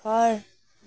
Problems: background sounds at intervals